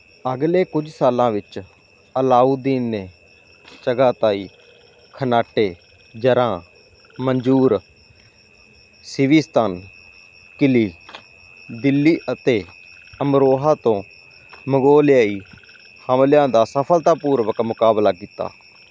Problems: none marked